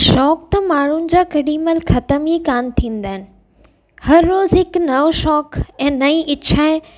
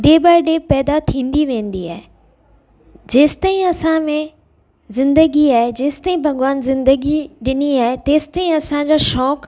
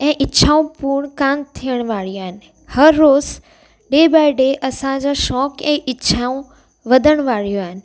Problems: constant background noise, echo